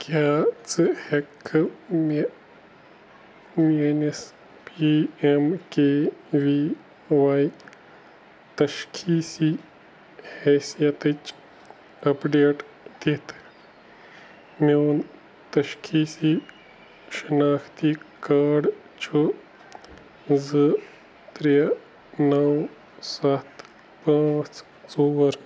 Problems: constant background noise